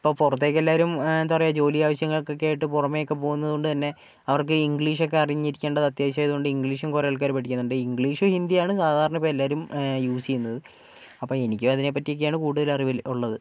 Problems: none marked